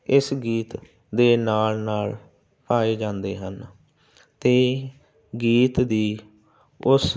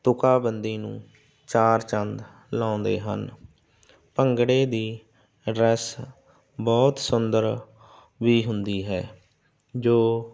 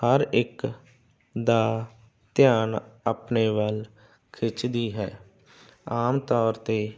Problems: constant background noise